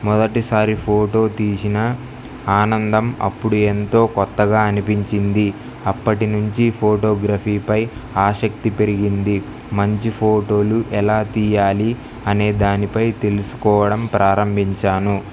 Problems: none marked